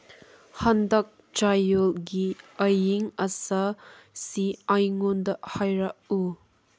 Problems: none marked